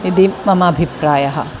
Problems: constant background noise